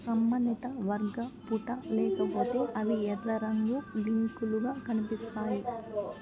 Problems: background conversations at intervals, low volume